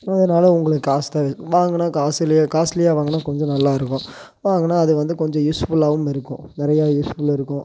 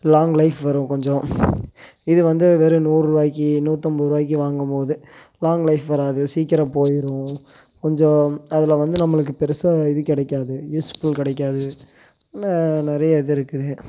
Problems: constant background noise